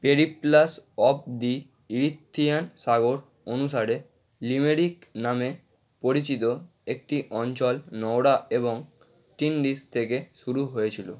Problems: constant background noise